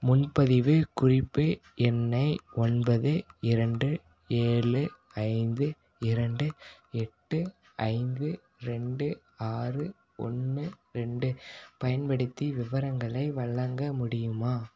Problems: none marked